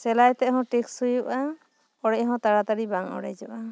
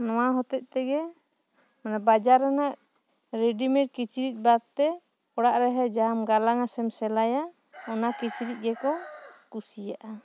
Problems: background sounds at intervals